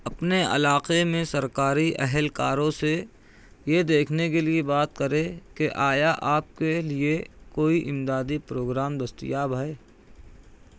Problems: none marked